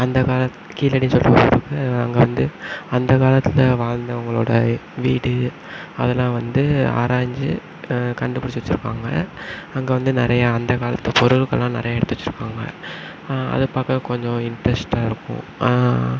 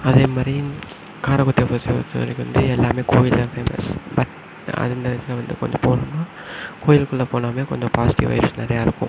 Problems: background sounds at intervals